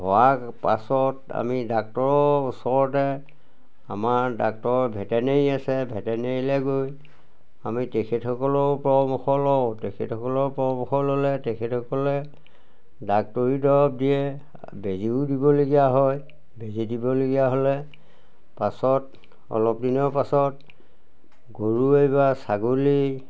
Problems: none marked